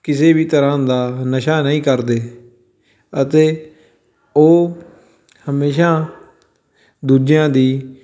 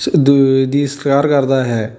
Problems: background sounds at intervals